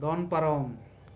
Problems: constant background noise